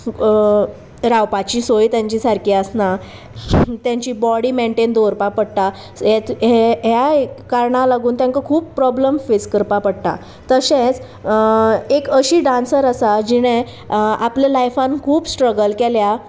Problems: constant background noise, background conversations at intervals